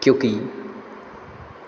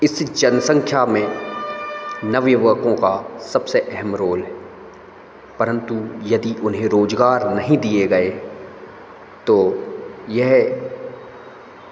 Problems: none marked